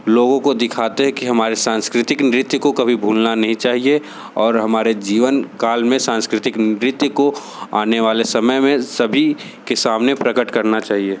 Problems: constant background noise